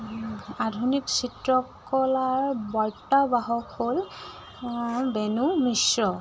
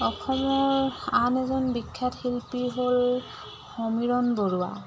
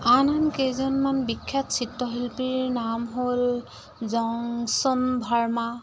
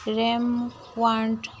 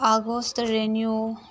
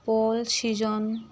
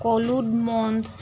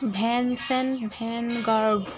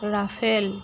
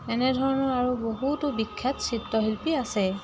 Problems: constant background noise